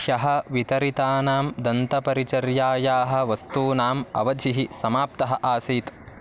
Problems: constant background noise